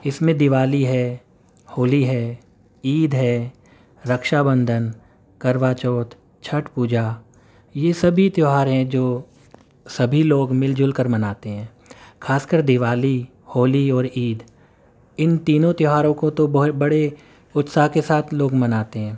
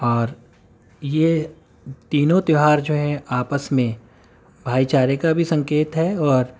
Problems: none marked